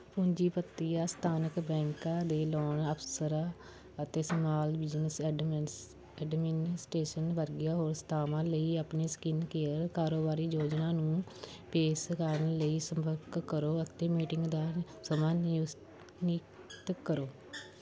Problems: background sounds at intervals